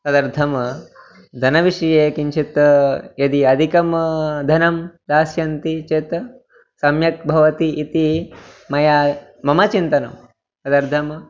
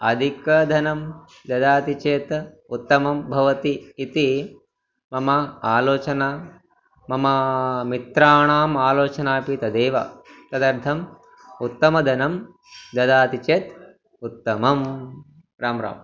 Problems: background sounds at intervals